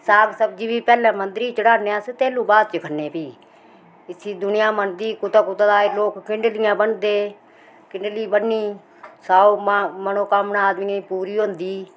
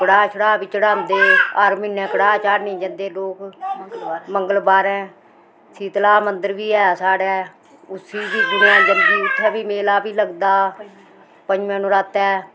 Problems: constant background noise, background conversations at intervals